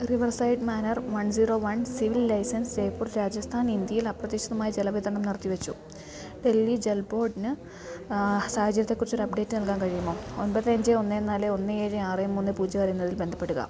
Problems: none marked